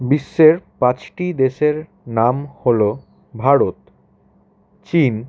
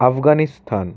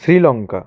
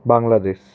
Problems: none marked